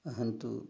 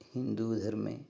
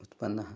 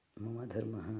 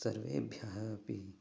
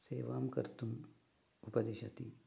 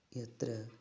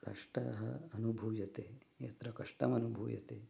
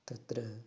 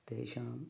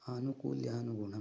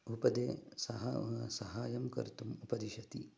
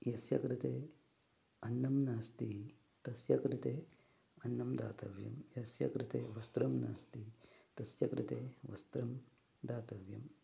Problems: background sounds at intervals, low volume